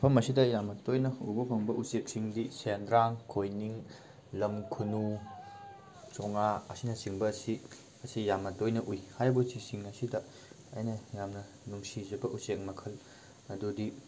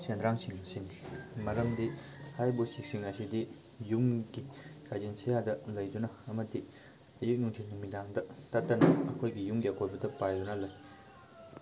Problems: background sounds at intervals